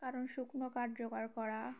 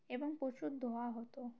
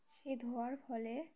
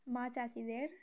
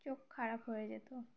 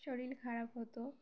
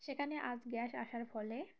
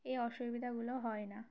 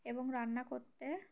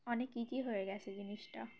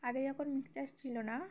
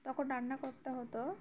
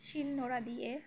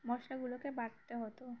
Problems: none marked